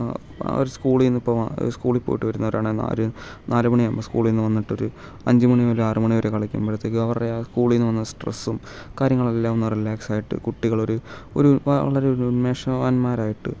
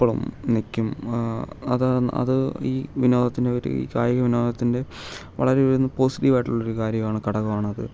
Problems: background sounds at intervals